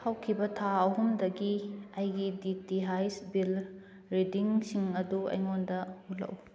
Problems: none marked